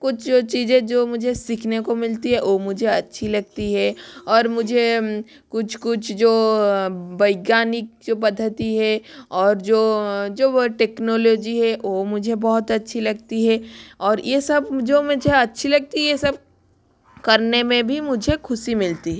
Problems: constant background noise